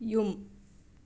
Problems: none marked